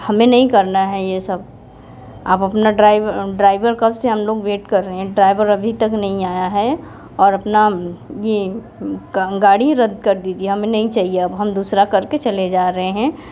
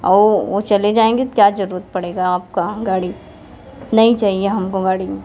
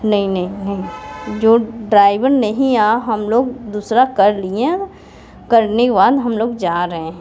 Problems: constant background noise, continuous background conversations